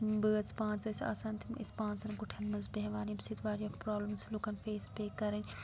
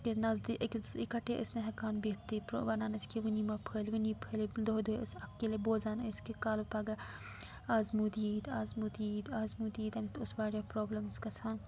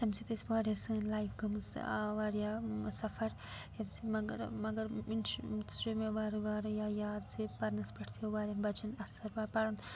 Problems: background sounds at intervals, low volume